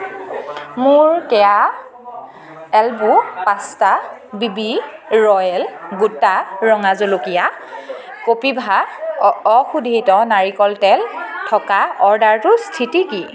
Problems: none marked